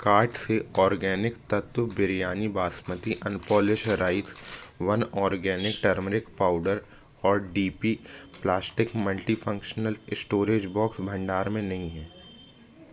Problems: constant background noise